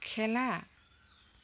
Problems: background sounds at intervals